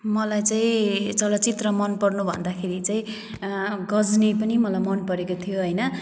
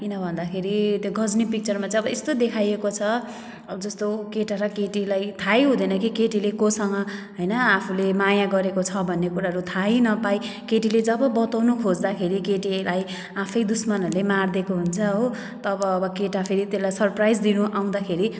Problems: background sounds at intervals